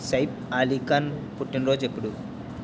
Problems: constant background noise